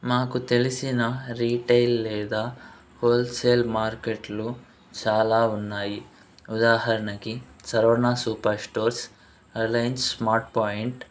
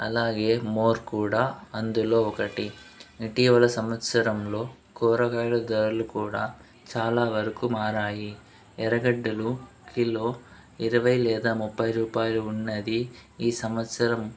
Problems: background sounds at intervals, background conversations at intervals